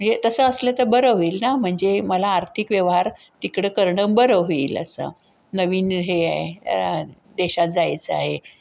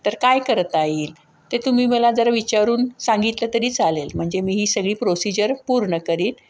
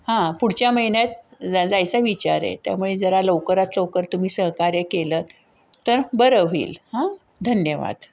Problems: none marked